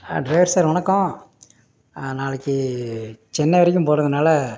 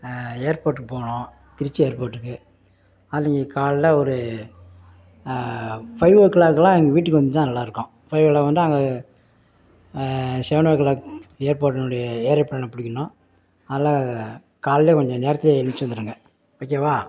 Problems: none marked